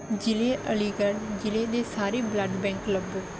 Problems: background sounds at intervals